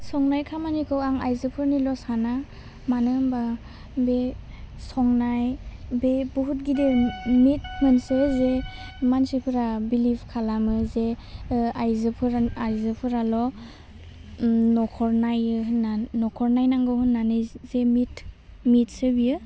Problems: none marked